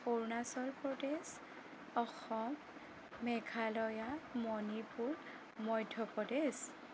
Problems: constant background noise